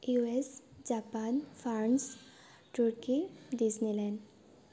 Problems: constant background noise